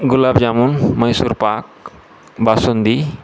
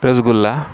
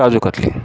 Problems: constant background noise, continuous background conversations